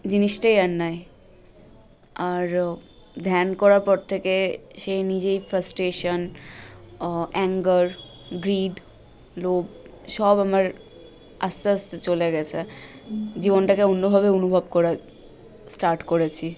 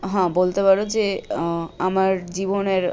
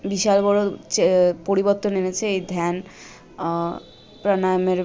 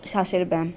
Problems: none marked